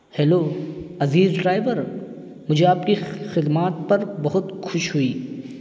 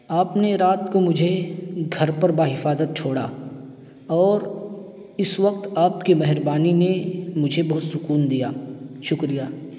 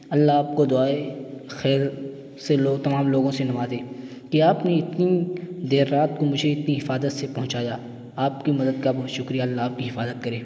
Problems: constant background noise